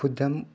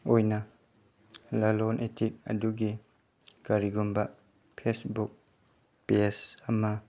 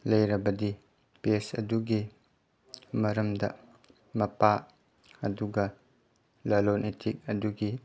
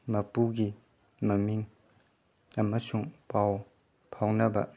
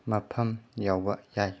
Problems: background sounds at intervals